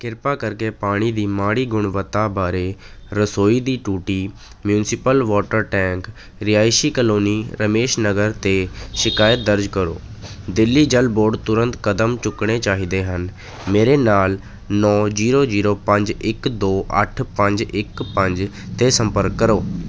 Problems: none marked